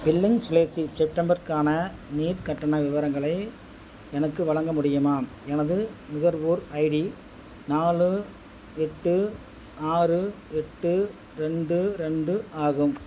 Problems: constant background noise